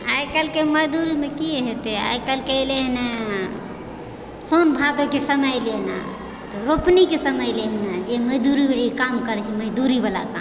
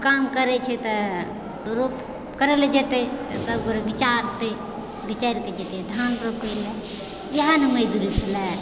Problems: constant background noise, continuous background conversations